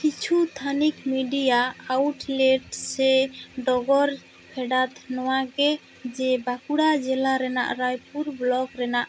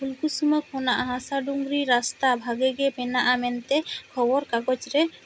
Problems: constant background noise